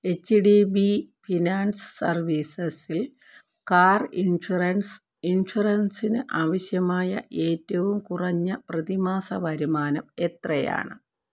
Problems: none marked